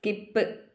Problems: none marked